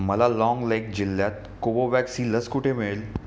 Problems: background sounds at intervals